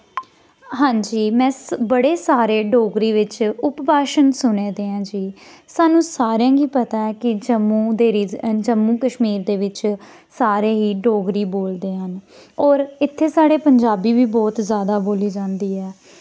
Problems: background sounds at intervals